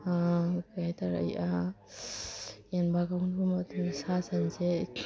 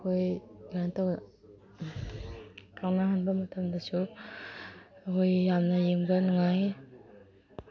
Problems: background sounds at intervals